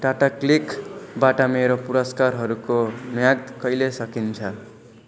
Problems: constant background noise